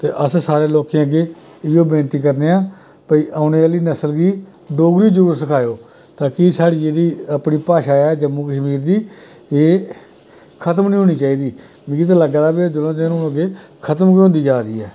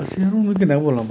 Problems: constant background noise